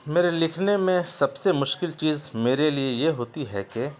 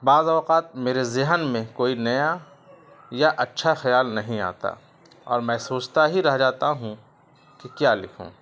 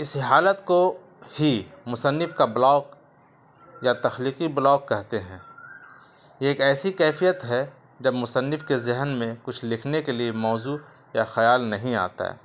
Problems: constant background noise